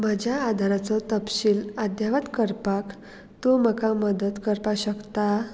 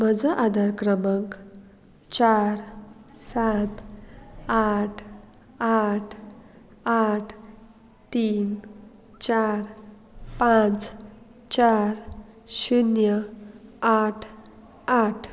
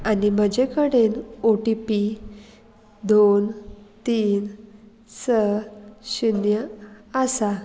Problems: none marked